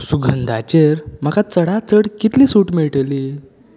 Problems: background sounds at intervals